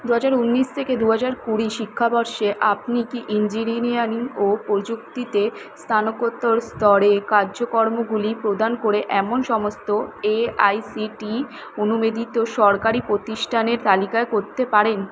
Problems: constant background noise